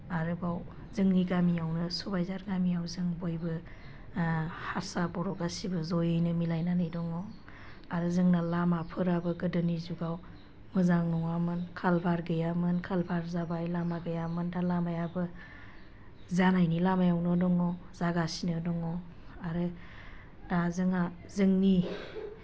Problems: none marked